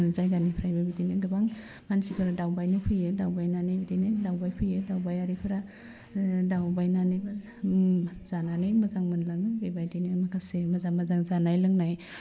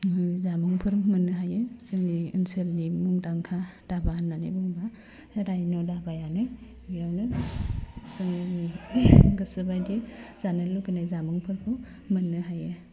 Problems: low volume